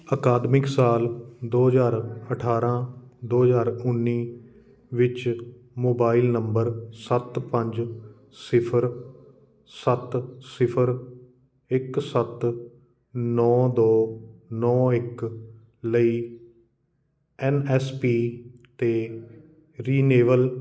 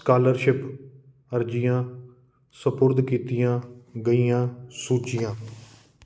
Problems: constant background noise